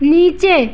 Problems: constant background noise